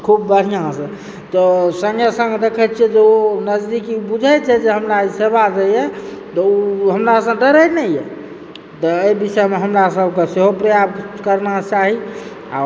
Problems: background sounds at intervals